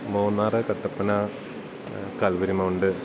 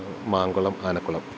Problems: constant background noise, low volume